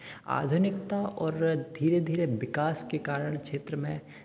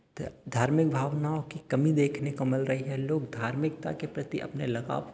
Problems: none marked